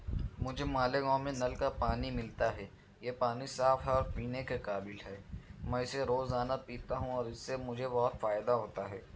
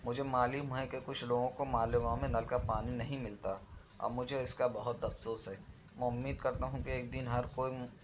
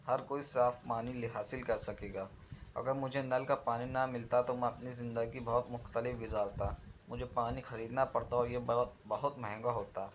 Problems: none marked